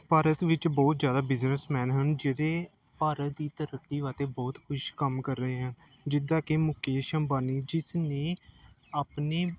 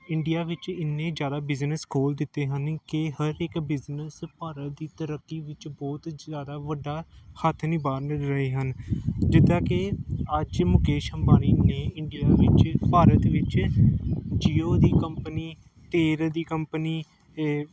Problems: none marked